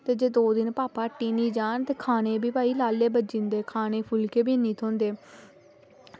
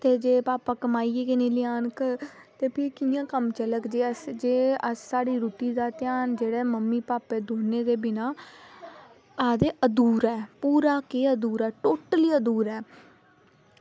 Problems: none marked